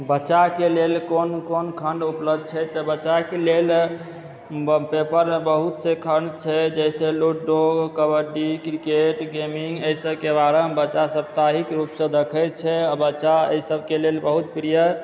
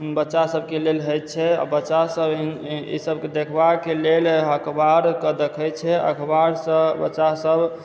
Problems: background sounds at intervals